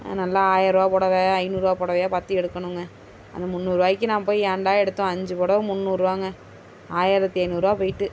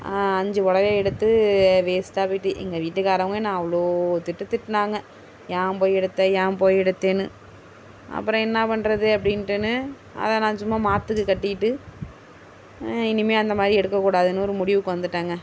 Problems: constant background noise